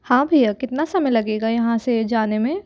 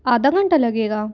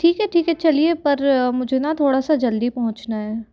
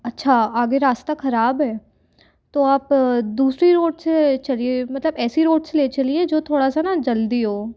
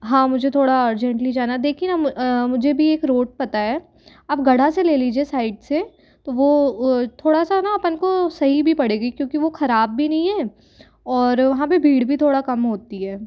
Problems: none marked